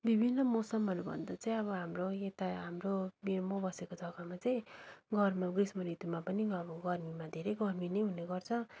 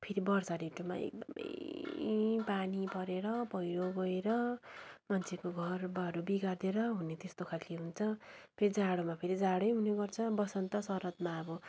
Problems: none marked